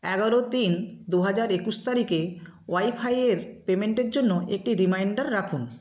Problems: none marked